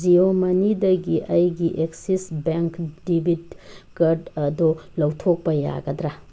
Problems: background sounds at intervals